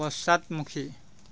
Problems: constant background noise